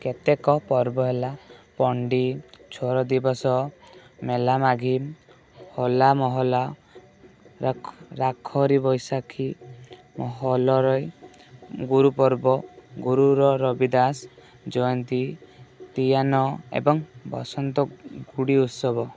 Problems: none marked